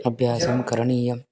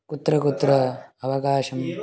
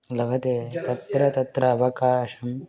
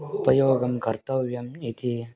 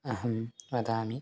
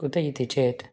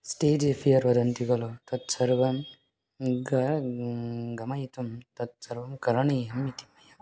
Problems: continuous background conversations